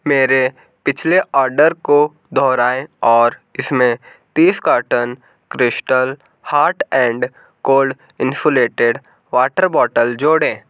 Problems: none marked